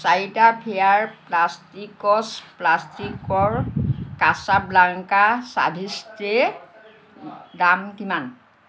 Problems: constant background noise